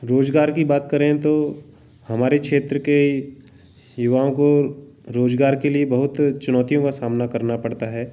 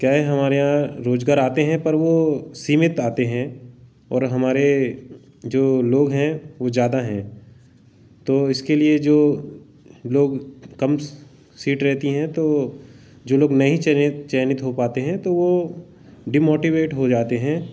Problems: background sounds at intervals